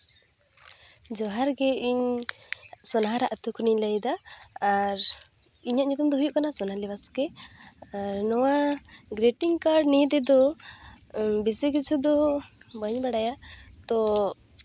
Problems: constant background noise